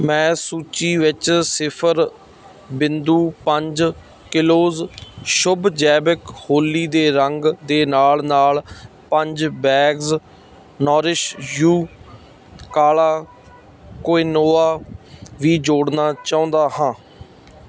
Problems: none marked